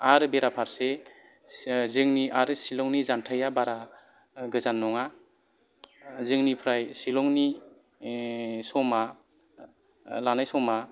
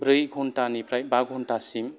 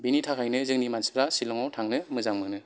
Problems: background sounds at intervals